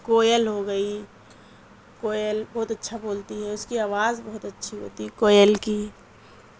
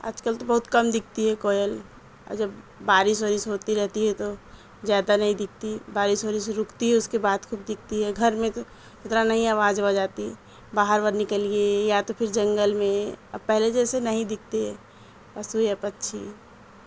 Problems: constant background noise